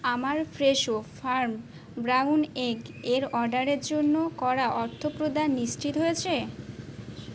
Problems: constant background noise